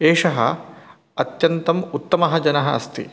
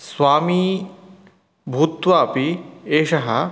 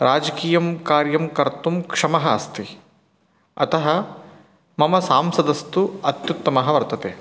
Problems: none marked